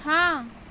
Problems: constant background noise